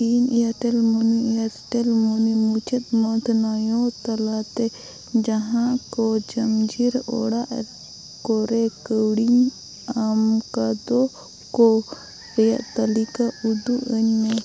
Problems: constant background noise